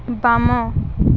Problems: none marked